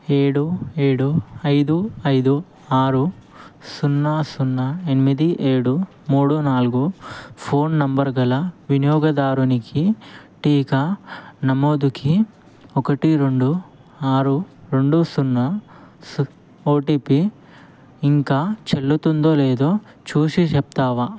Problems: none marked